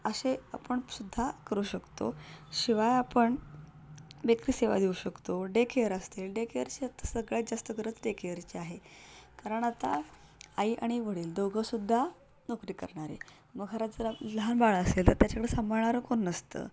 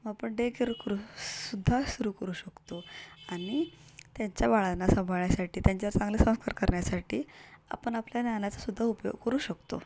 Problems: constant background noise